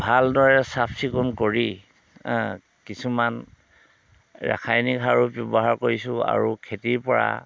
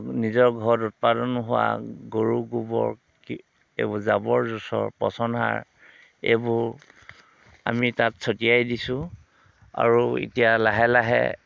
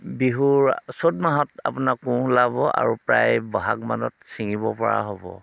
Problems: constant background noise